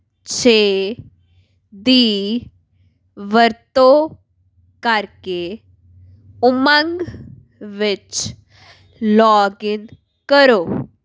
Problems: background sounds at intervals